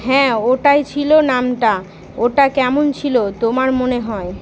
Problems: constant background noise